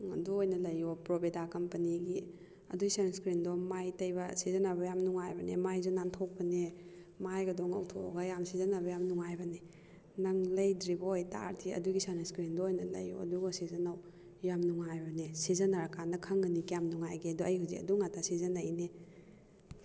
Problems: none marked